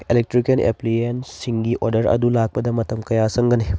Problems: background sounds at intervals